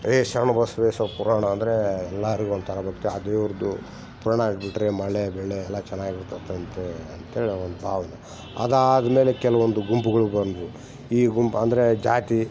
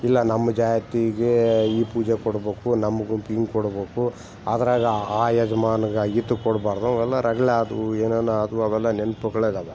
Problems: background sounds at intervals